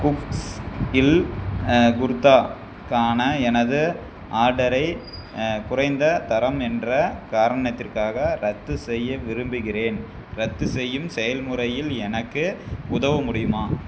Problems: constant background noise